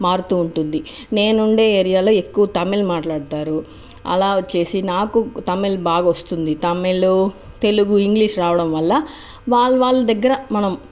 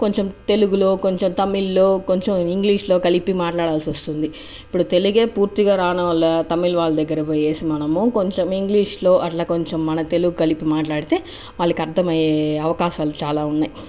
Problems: none marked